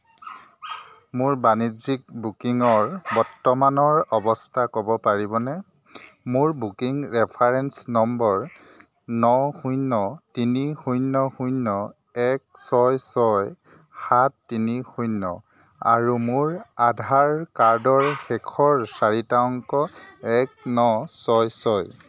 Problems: constant background noise, background conversations at intervals